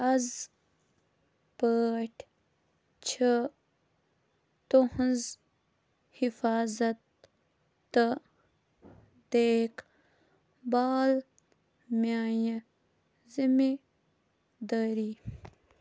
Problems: constant background noise, low volume